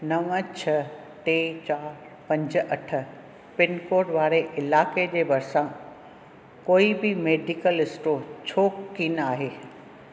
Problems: none marked